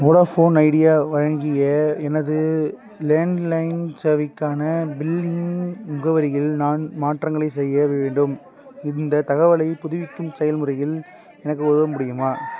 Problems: background conversations at intervals